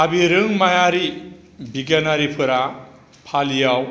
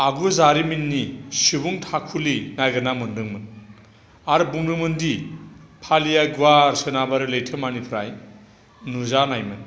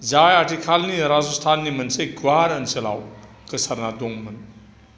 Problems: constant background noise